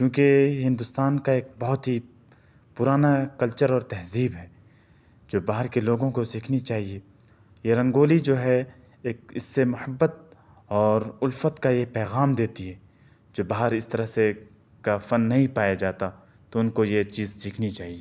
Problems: none marked